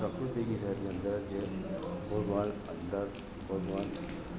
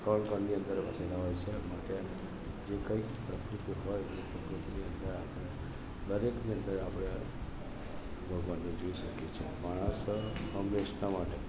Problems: background conversations at intervals, low volume